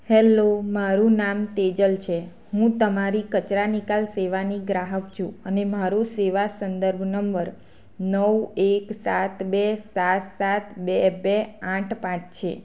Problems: constant background noise